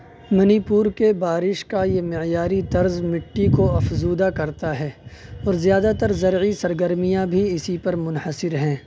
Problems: none marked